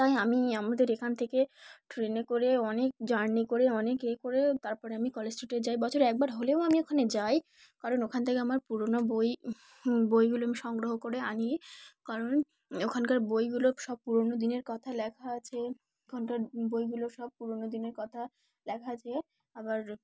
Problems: background sounds at intervals